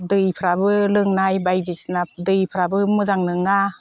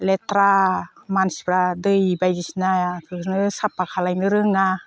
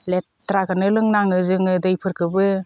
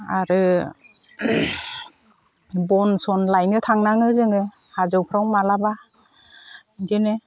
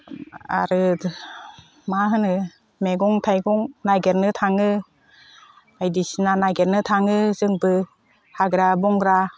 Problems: none marked